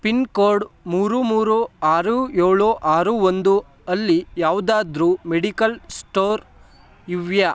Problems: none marked